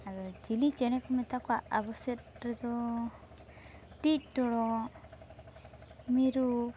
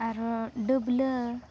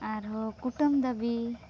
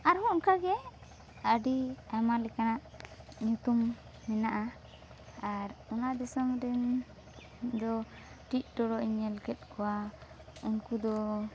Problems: constant background noise